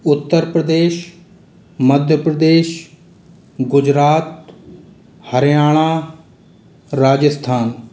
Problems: constant background noise